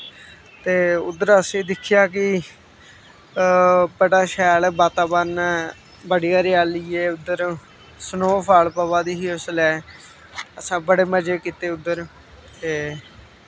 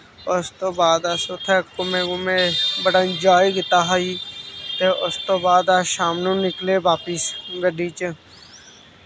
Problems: none marked